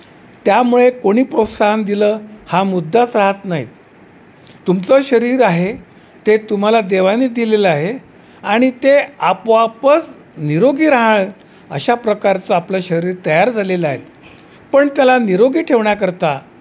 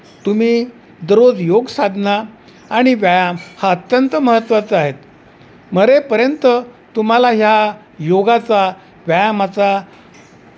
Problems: none marked